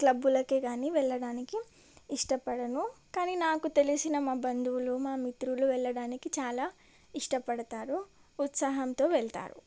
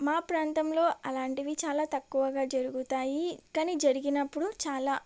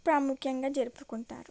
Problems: none marked